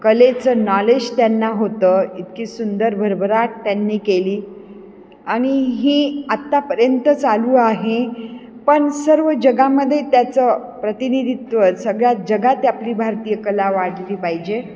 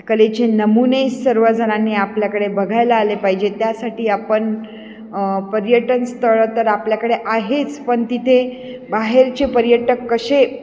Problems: none marked